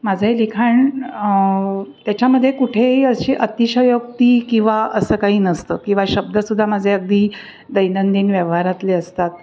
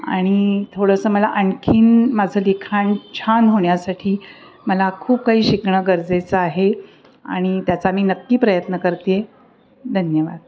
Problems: none marked